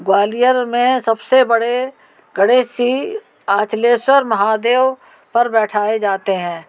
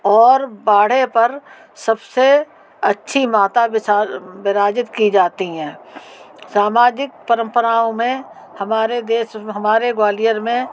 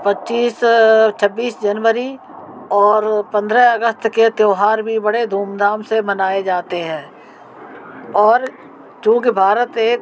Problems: none marked